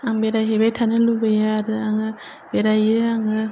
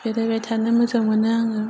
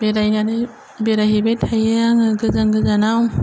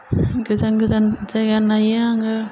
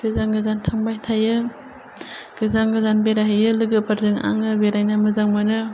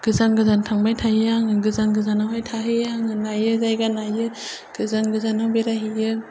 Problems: none marked